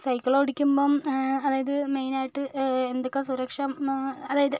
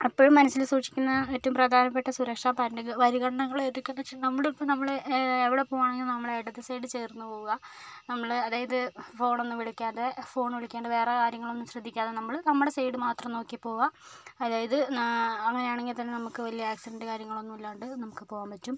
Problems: background sounds at intervals, low volume